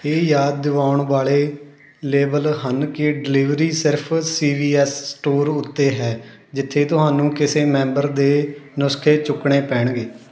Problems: constant background noise